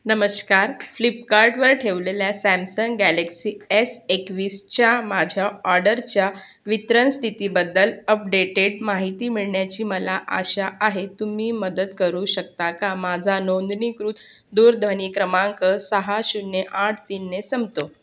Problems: background sounds at intervals